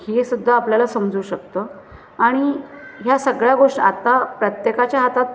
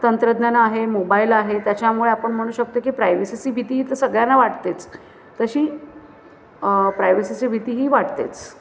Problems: constant background noise, continuous background conversations